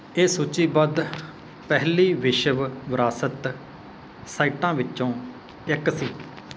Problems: background sounds at intervals